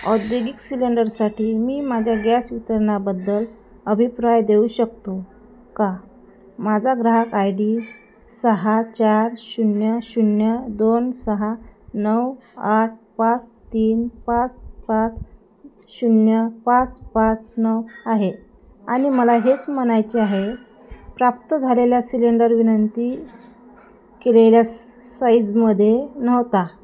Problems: constant background noise, background conversations at intervals